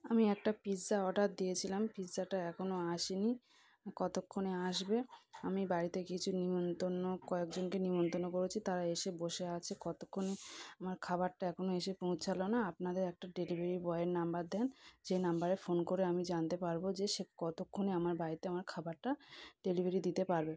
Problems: background sounds at intervals